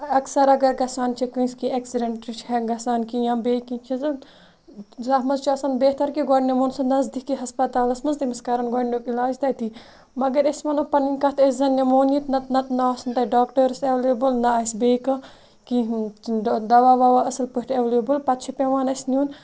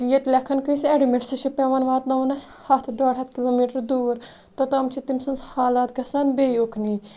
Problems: none marked